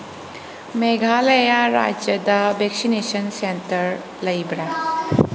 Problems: background sounds at intervals